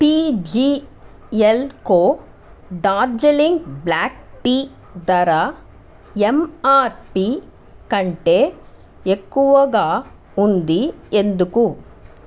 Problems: constant background noise